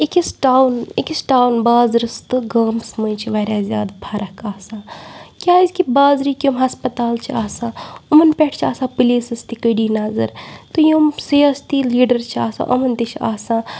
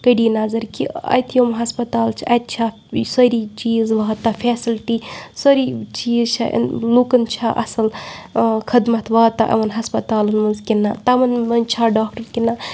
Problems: background sounds at intervals